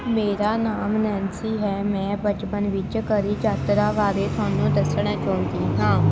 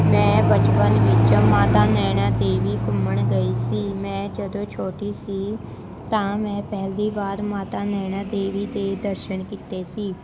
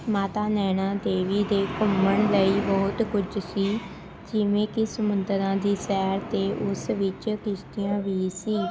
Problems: constant background noise, continuous background conversations